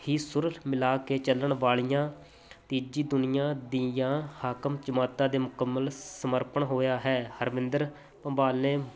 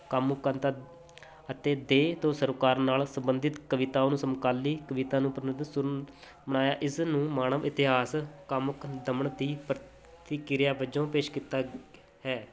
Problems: none marked